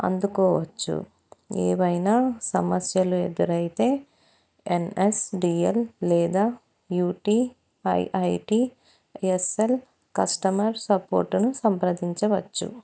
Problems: none marked